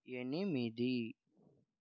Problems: low volume